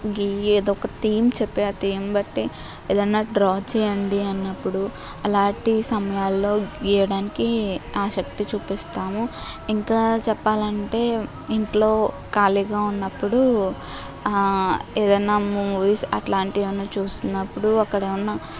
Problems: constant background noise